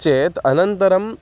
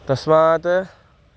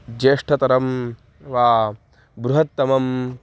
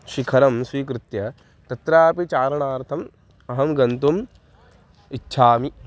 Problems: background sounds at intervals